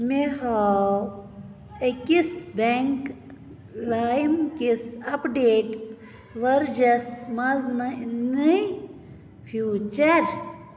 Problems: none marked